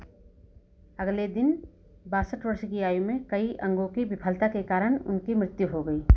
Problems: none marked